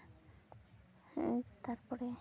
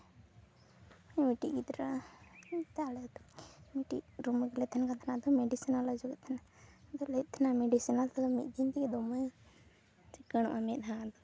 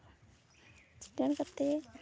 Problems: constant background noise